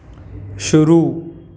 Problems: constant background noise, background conversations at intervals